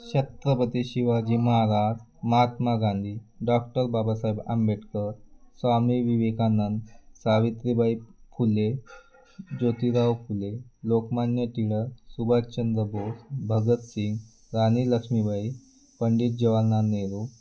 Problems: constant background noise, background conversations at intervals